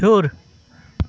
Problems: constant background noise, continuous background conversations